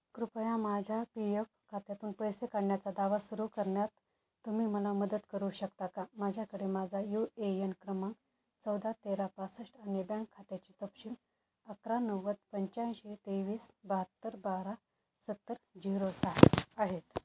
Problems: background sounds at intervals